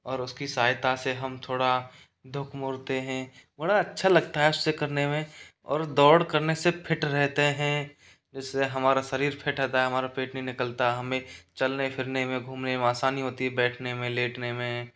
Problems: background sounds at intervals